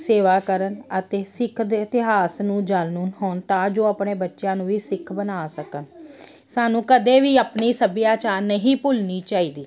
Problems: none marked